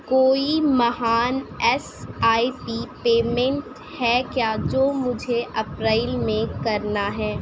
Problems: none marked